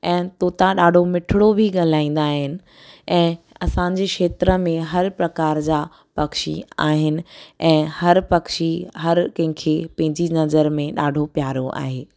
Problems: none marked